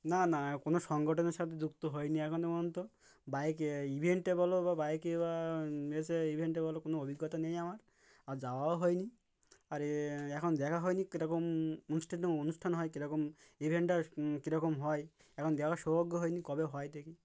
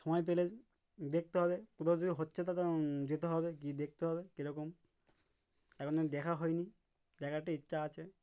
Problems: background sounds at intervals